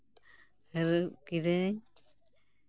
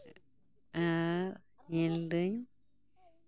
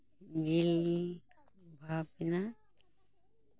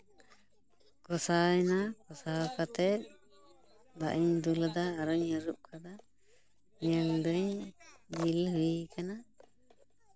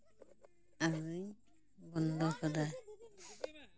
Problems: background conversations at intervals